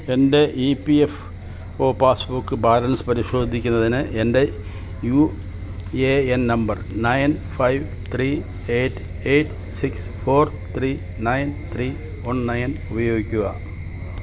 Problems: constant background noise